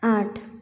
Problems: none marked